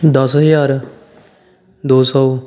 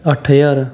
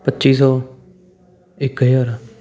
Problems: continuous background conversations